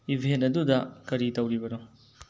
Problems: low volume